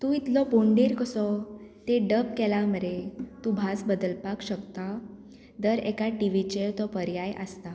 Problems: constant background noise